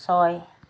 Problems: none marked